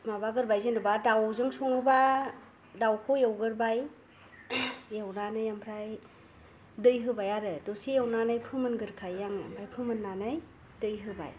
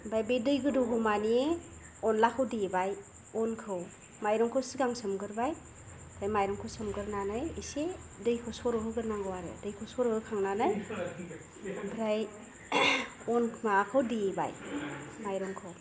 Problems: low volume